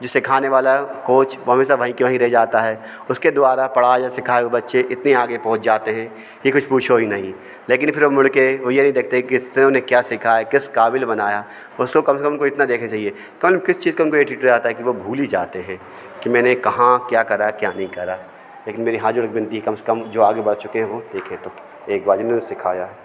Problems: background sounds at intervals, background conversations at intervals